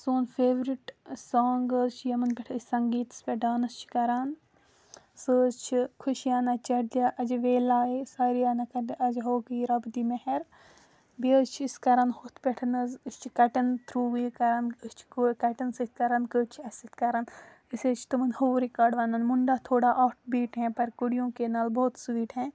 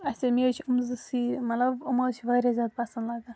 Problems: none marked